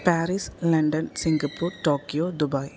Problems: none marked